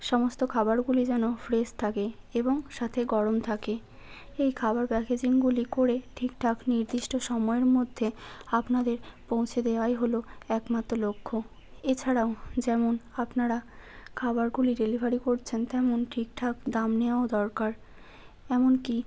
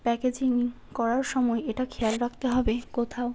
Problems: constant background noise